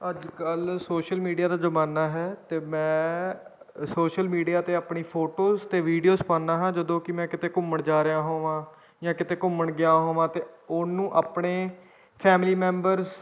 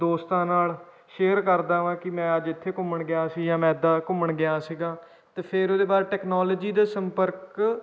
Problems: background sounds at intervals